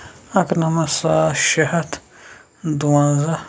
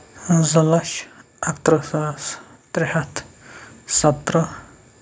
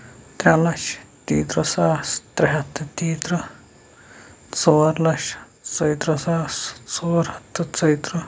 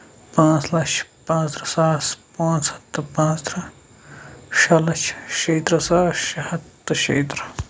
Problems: none marked